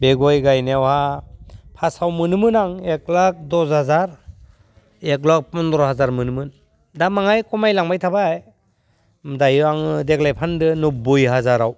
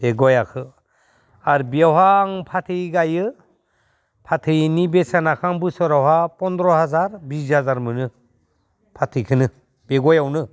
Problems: low volume